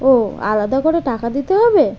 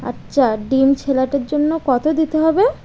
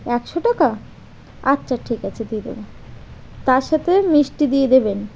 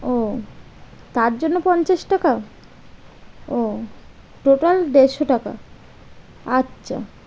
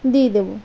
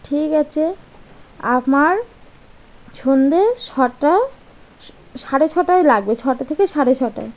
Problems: constant background noise